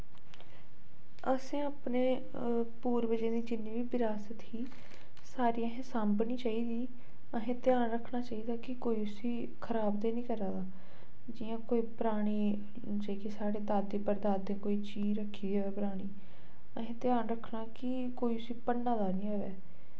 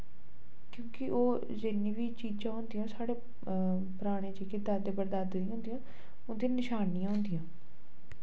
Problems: low volume